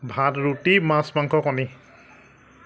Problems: none marked